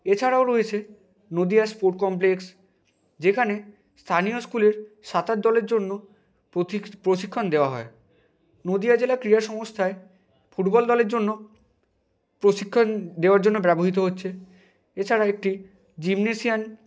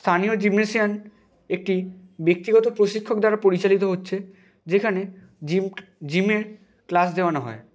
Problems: none marked